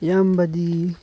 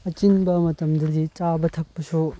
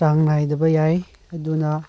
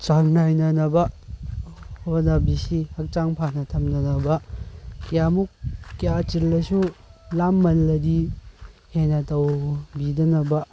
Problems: none marked